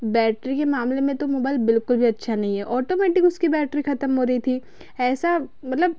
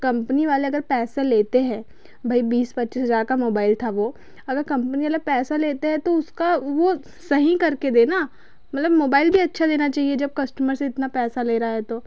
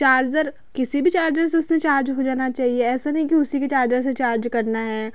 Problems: none marked